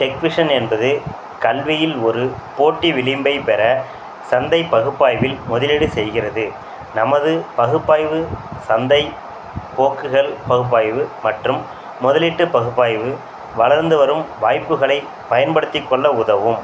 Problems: none marked